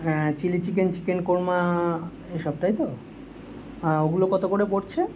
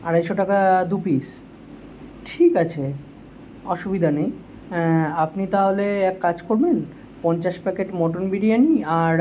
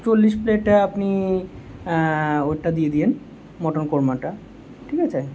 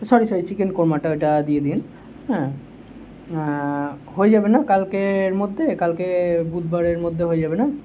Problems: constant background noise